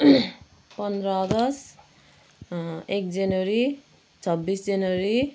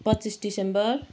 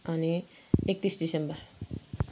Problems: background sounds at intervals